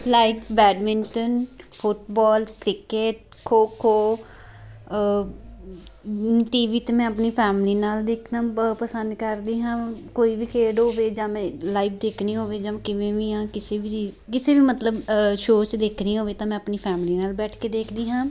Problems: constant background noise